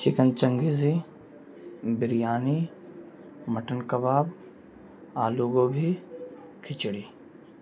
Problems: constant background noise, low volume